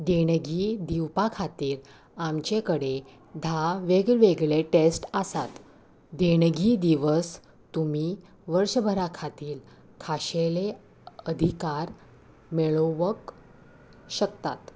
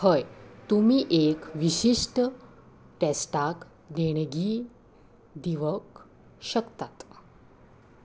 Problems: none marked